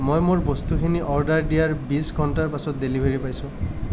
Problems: none marked